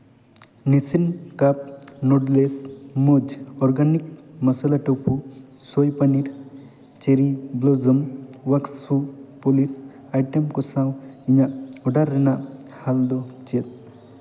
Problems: constant background noise, echo